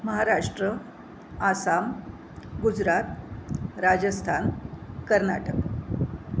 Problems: constant background noise